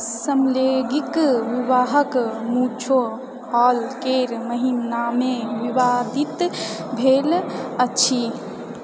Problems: background conversations at intervals